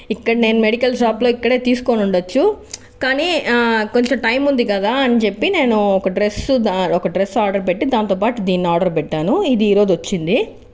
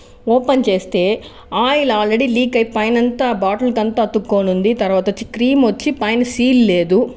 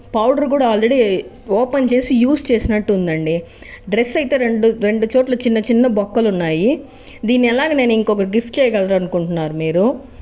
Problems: background sounds at intervals